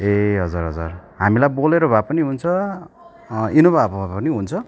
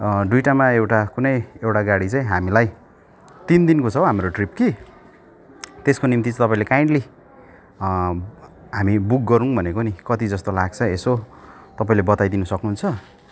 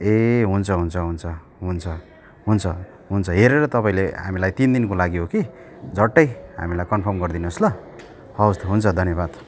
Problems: continuous background conversations